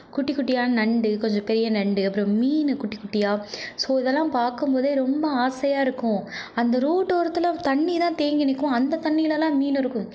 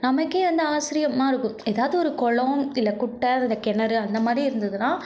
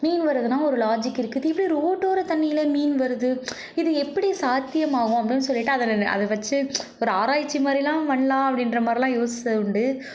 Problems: none marked